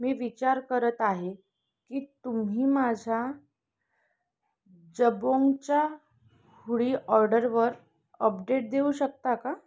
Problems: background sounds at intervals, background conversations at intervals